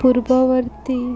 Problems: constant background noise